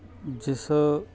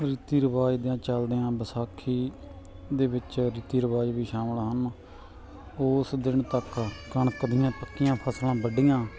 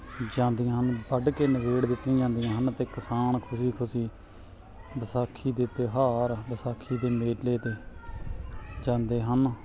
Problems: none marked